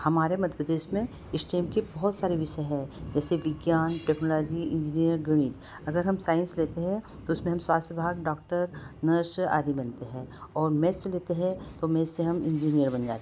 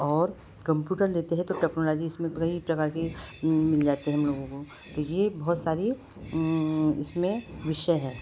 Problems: constant background noise